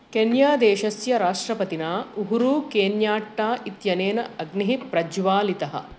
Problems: constant background noise